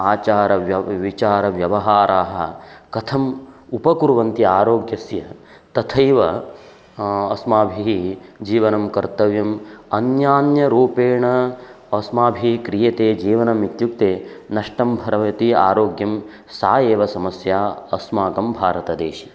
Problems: constant background noise